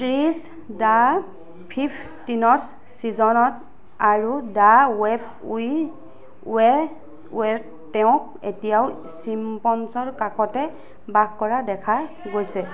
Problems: constant background noise